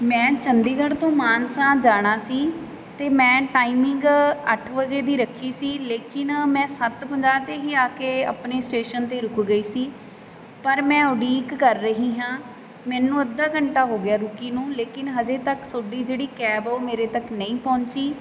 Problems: none marked